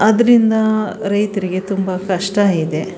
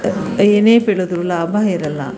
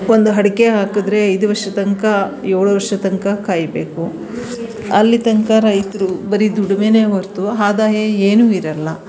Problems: background sounds at intervals